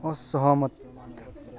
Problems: continuous background conversations